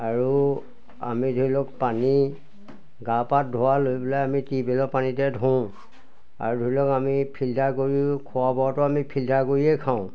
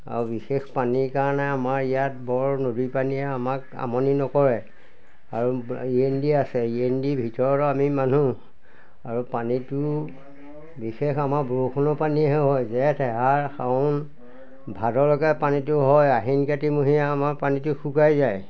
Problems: none marked